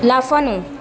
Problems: continuous background conversations